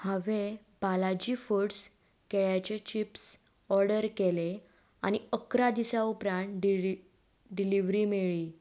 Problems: none marked